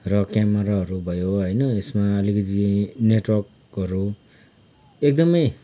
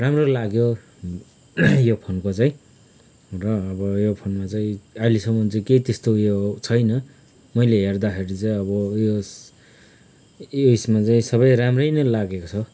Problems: background sounds at intervals